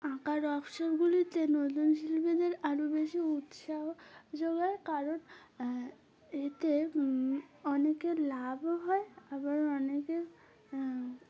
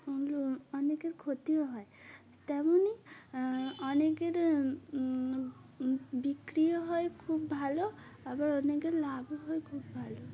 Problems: background sounds at intervals